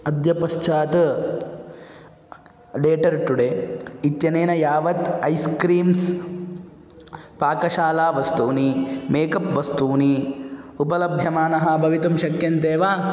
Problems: none marked